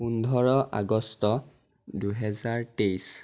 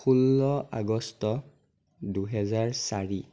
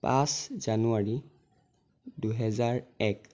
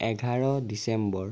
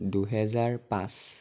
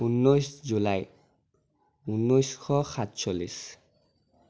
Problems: none marked